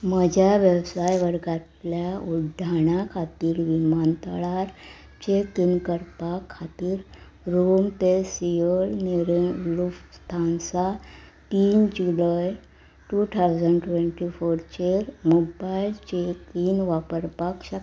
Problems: background sounds at intervals